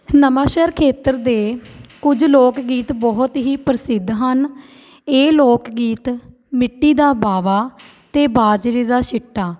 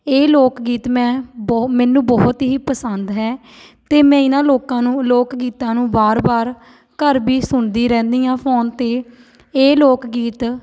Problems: background sounds at intervals